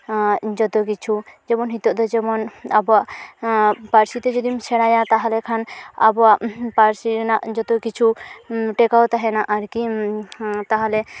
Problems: none marked